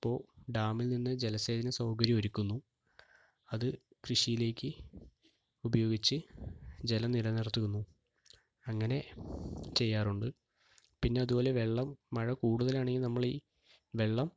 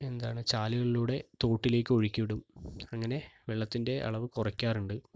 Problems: low volume